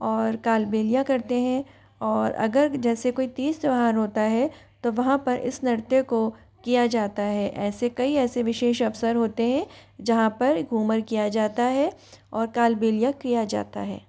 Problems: constant background noise, background conversations at intervals